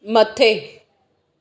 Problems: echo